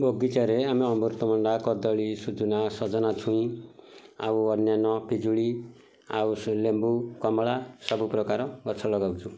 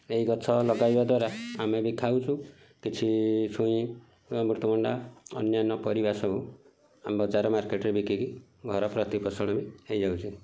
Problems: background sounds at intervals, background conversations at intervals